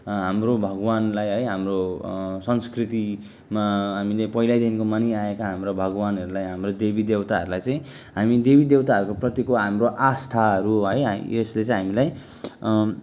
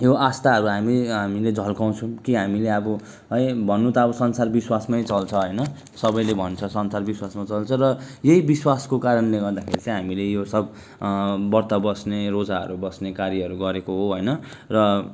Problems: none marked